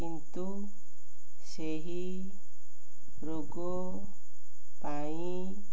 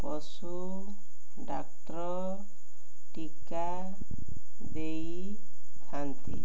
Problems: none marked